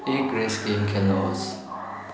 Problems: constant background noise